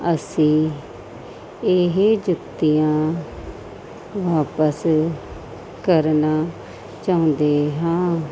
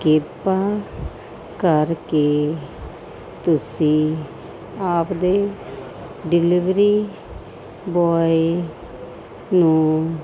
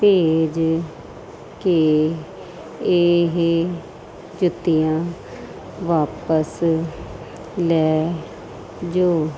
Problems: constant background noise